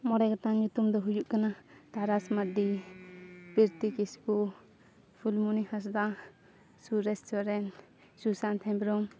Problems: none marked